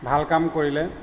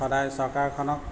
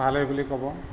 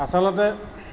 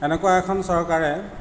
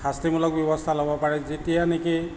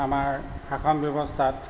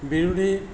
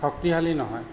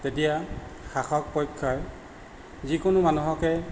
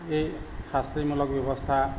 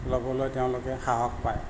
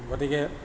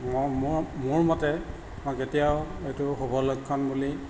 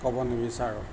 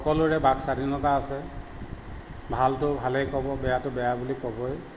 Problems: none marked